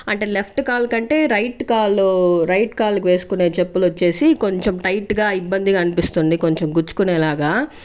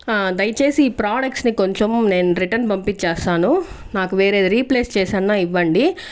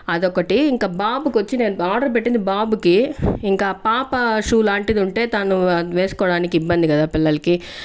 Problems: background sounds at intervals